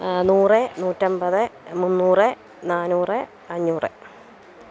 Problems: none marked